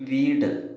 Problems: low volume